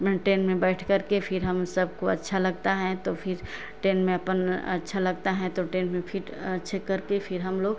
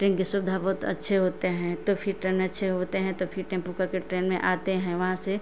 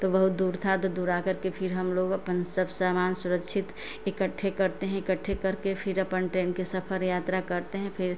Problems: none marked